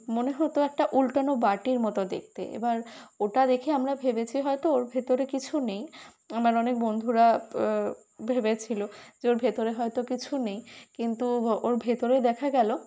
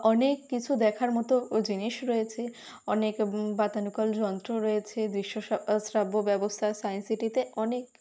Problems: constant background noise